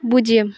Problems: none marked